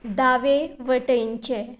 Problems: background sounds at intervals